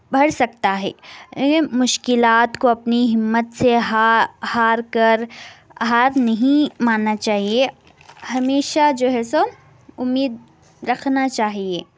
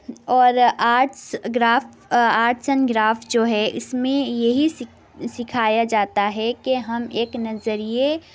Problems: constant background noise